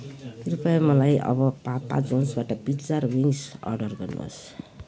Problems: constant background noise